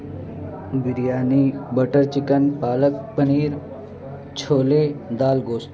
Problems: constant background noise